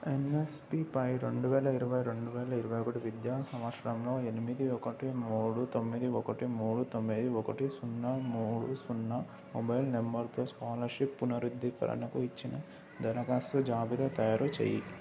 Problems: constant background noise